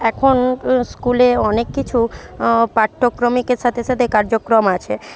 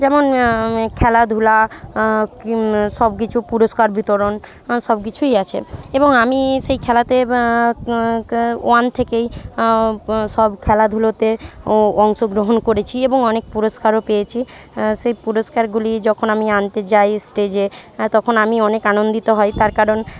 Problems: background sounds at intervals, background conversations at intervals